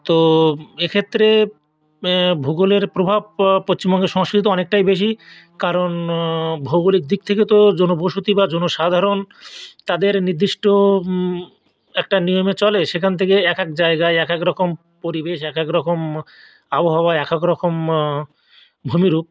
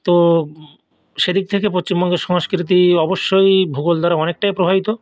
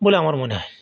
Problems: none marked